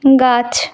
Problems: constant background noise